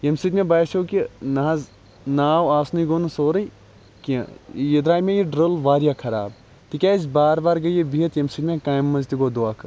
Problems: constant background noise